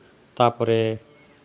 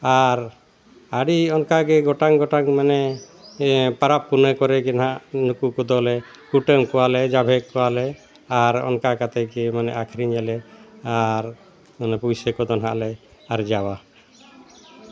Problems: constant background noise